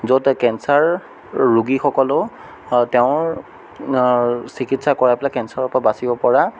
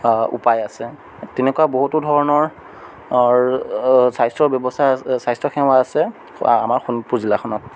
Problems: none marked